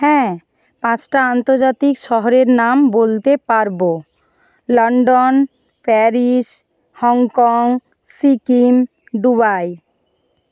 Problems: background sounds at intervals